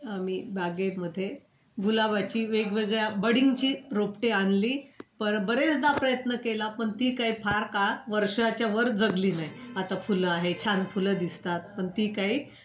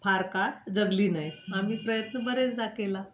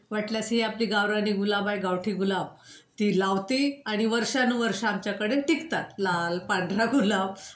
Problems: constant background noise